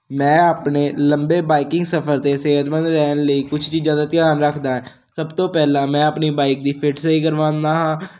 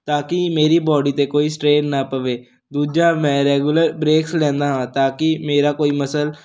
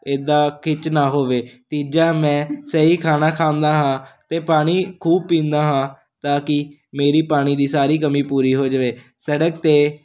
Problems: none marked